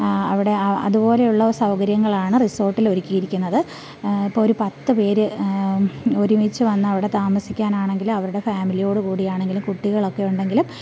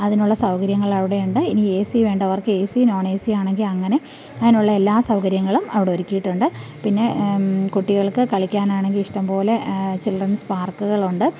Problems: none marked